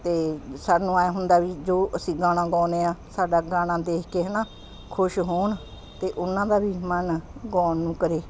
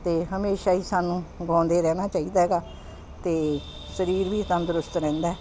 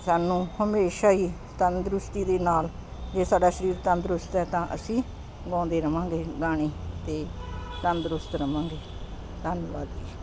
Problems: constant background noise